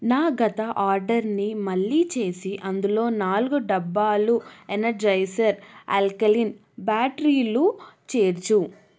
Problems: none marked